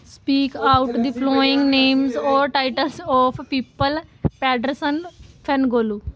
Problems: continuous background conversations